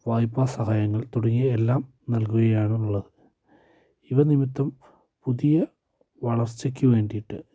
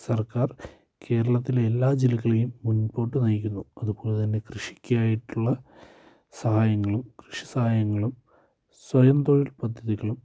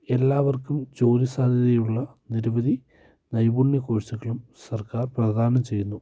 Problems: low volume